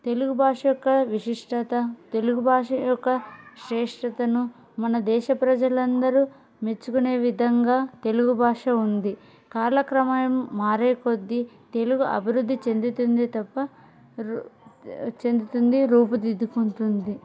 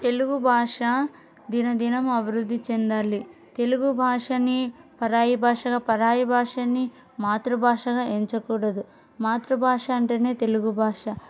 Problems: background conversations at intervals